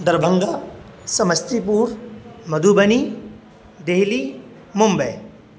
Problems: constant background noise